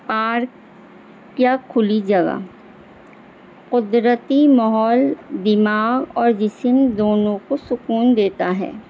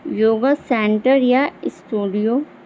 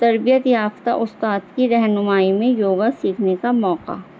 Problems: constant background noise